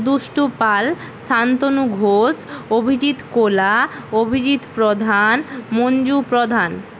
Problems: constant background noise